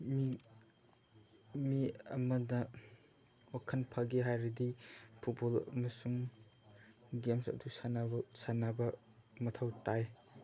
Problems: background sounds at intervals, background conversations at intervals